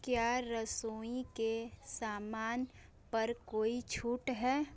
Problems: constant background noise, continuous background conversations